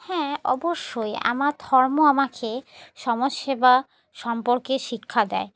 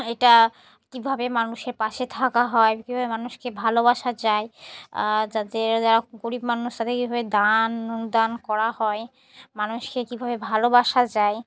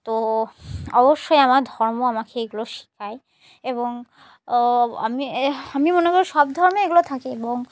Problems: constant background noise